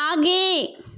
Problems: background sounds at intervals